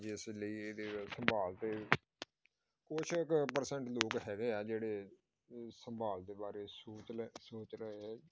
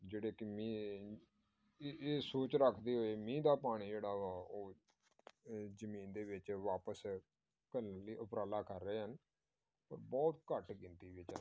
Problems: background sounds at intervals